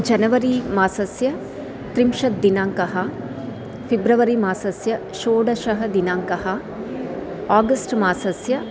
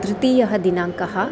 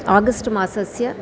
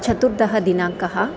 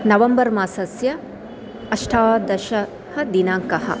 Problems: constant background noise